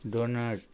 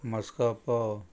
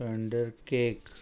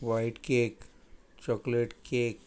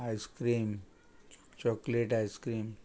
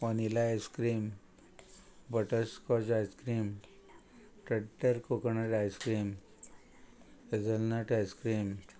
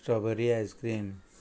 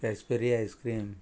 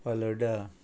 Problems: constant background noise